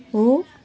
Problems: continuous background conversations